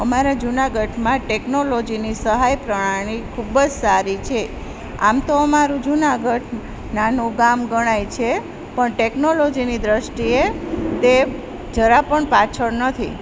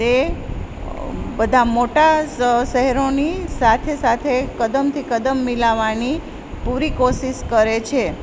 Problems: constant background noise